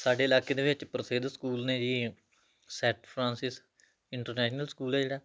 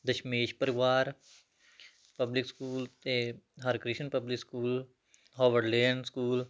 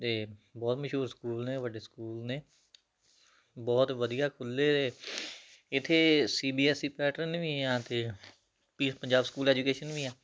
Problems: background sounds at intervals